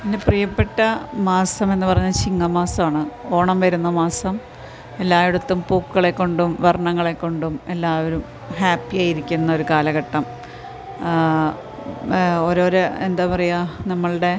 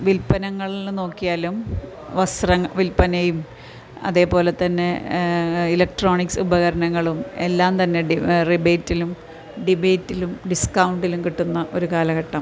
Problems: background sounds at intervals